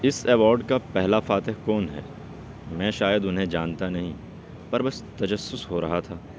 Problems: constant background noise, background conversations at intervals